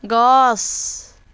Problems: none marked